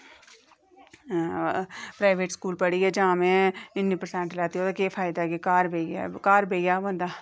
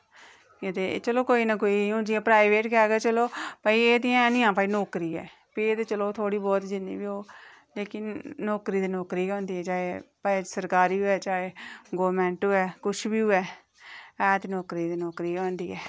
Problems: echo